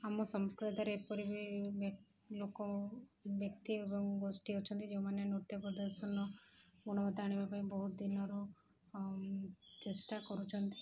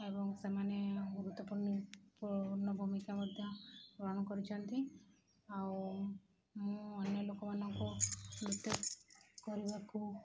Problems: background sounds at intervals